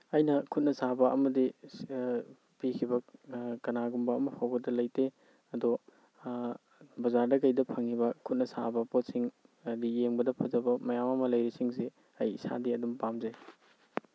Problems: none marked